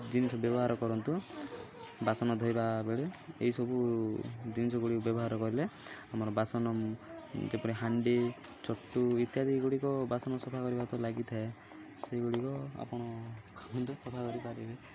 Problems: none marked